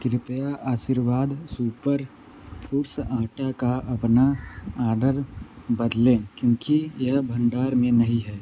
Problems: constant background noise